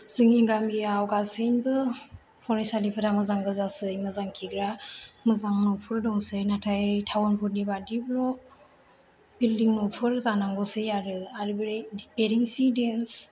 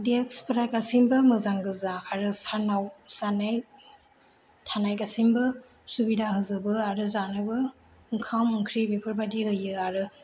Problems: low volume